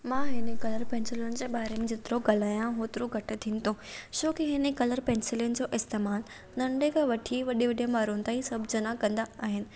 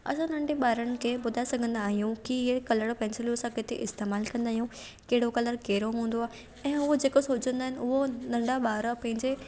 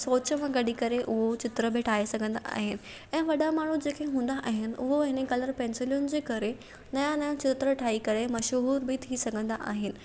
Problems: none marked